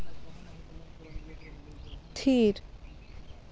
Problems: constant background noise